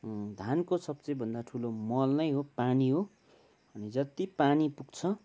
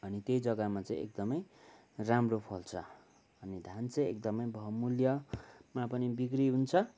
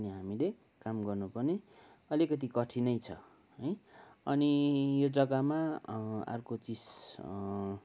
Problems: background sounds at intervals